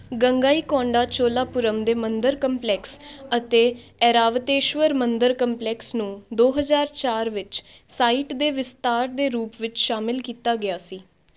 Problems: background sounds at intervals, background conversations at intervals